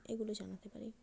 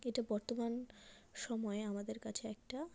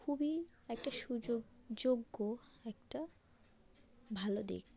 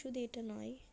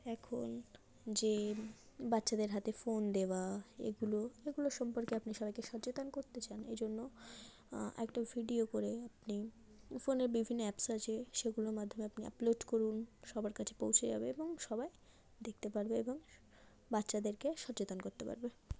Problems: background sounds at intervals, low volume